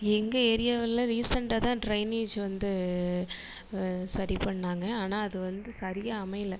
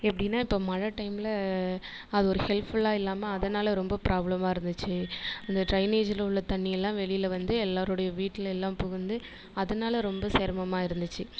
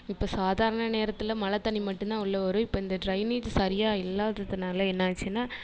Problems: constant background noise